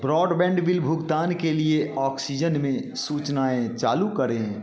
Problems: none marked